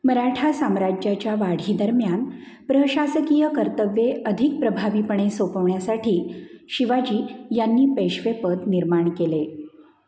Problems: none marked